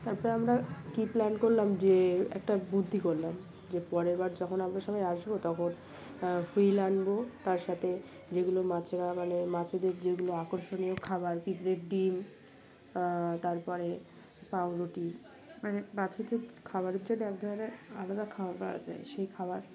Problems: none marked